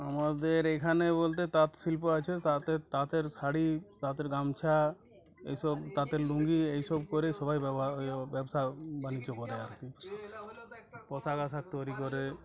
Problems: continuous background conversations